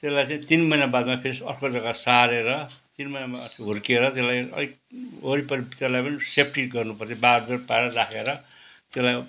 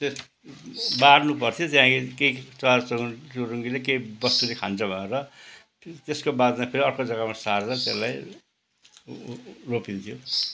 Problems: constant background noise